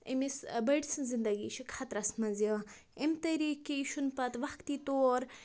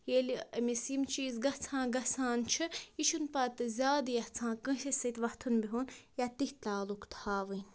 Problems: none marked